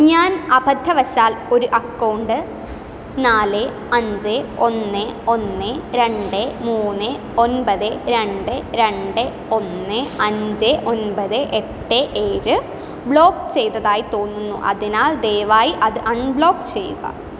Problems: background sounds at intervals